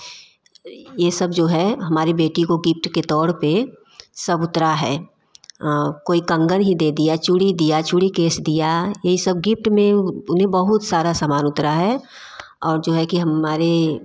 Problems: background sounds at intervals